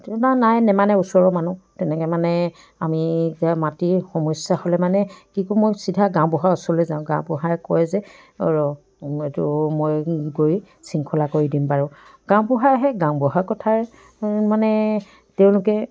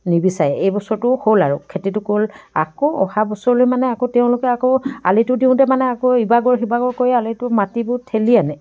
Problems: continuous background conversations